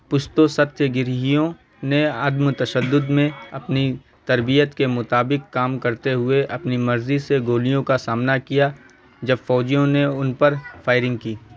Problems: constant background noise